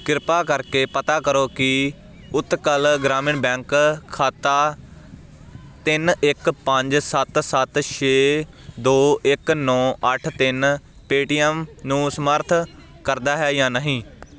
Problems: constant background noise